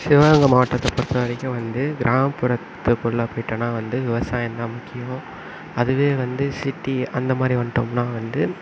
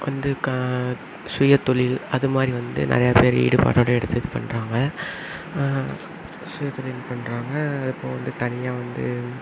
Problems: none marked